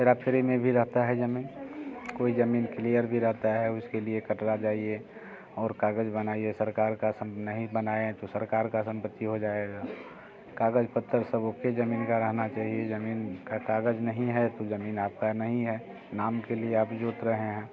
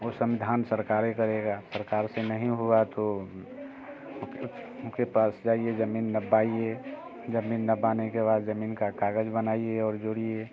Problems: constant background noise